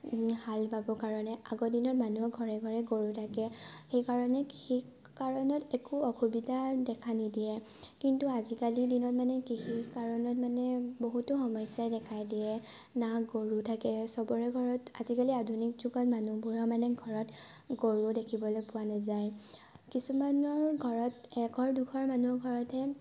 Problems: constant background noise, low volume